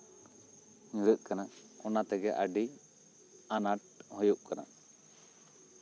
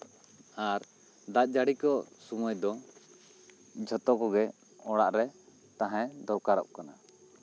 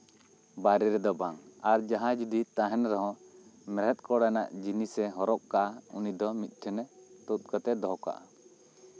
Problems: constant background noise